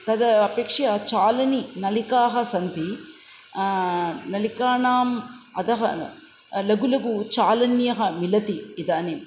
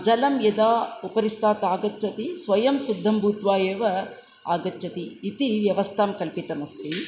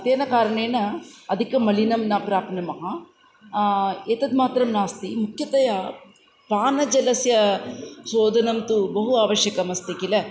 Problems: none marked